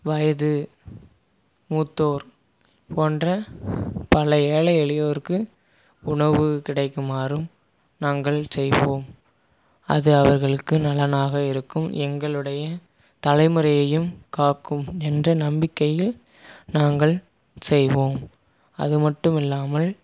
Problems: background sounds at intervals